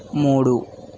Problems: none marked